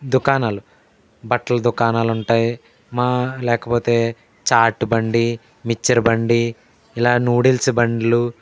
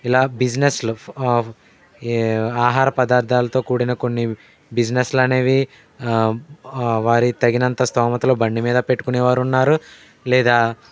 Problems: none marked